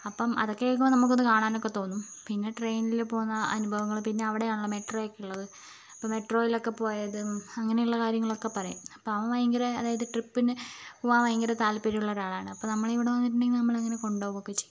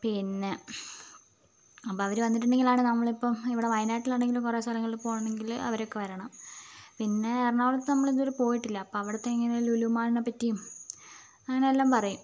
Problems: constant background noise